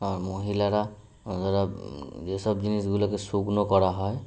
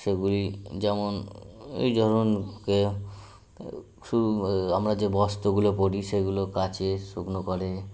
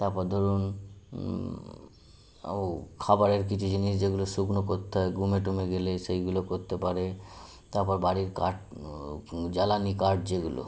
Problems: constant background noise